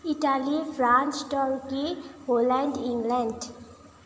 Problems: constant background noise